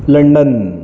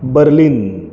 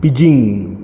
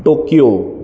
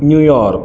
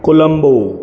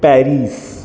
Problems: none marked